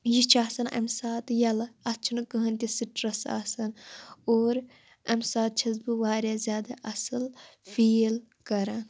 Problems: none marked